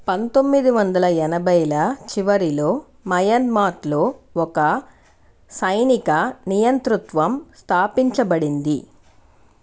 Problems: none marked